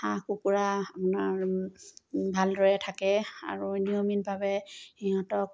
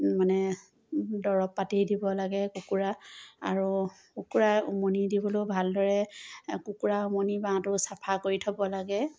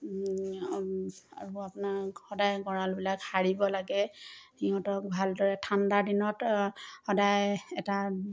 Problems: none marked